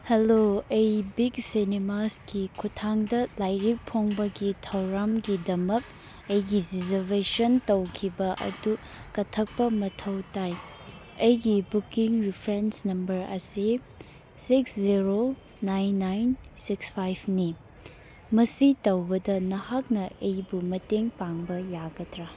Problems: none marked